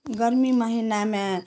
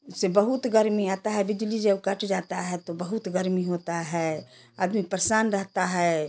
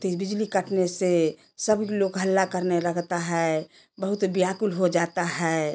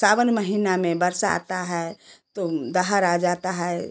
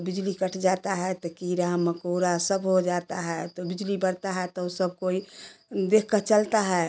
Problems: constant background noise, background conversations at intervals